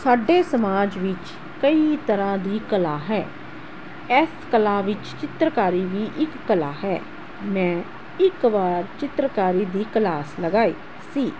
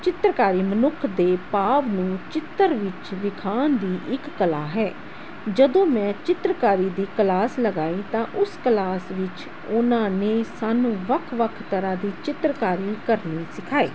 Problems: constant background noise